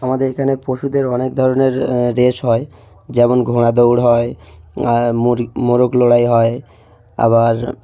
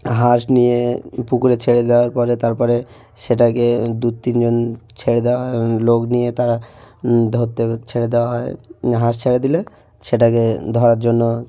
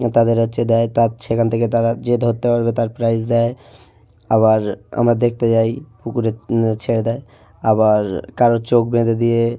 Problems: none marked